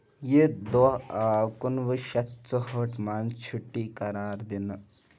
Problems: background sounds at intervals, background conversations at intervals